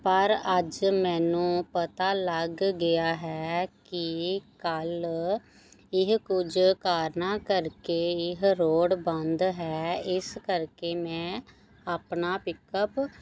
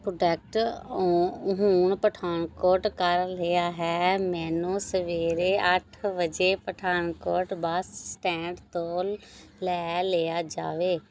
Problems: none marked